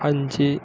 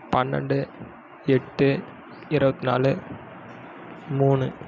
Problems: background sounds at intervals